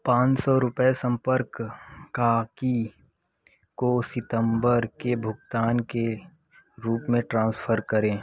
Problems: none marked